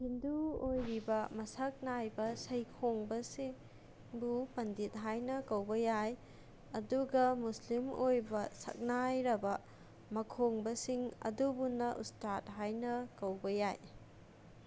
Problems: constant background noise